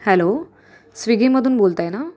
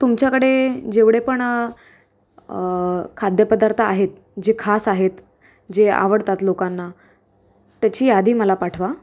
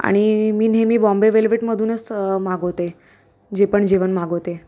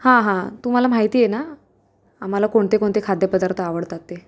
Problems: constant background noise, background conversations at intervals, echo